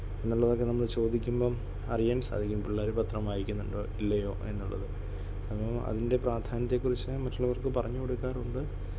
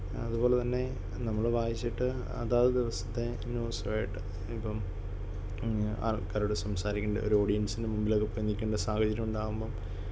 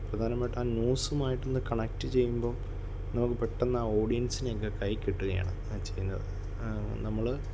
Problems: none marked